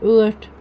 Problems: none marked